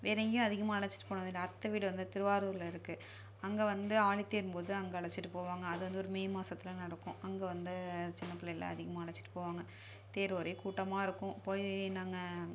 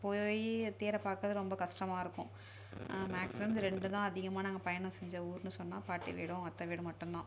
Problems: low volume